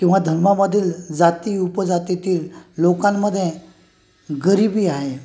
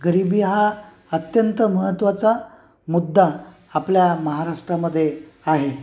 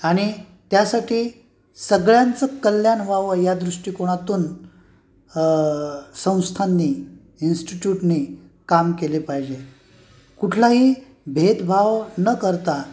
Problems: constant background noise